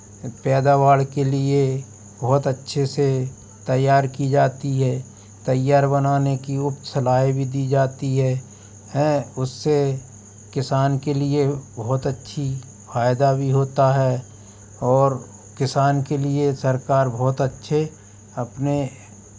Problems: constant background noise